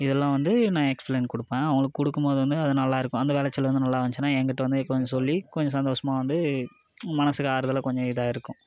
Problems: none marked